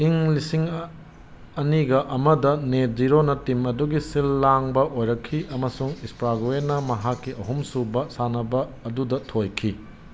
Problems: background sounds at intervals